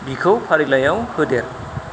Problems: constant background noise